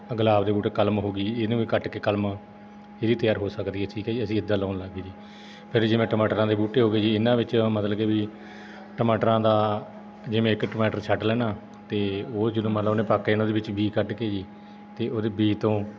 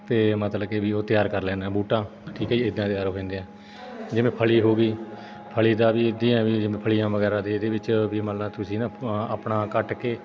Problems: background sounds at intervals, background conversations at intervals